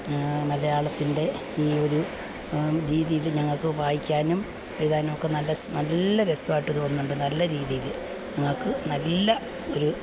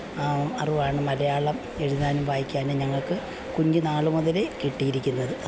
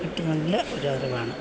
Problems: constant background noise, low volume